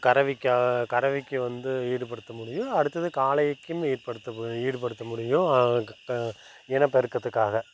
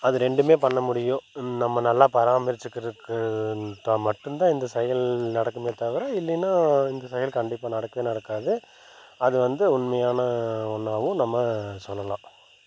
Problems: constant background noise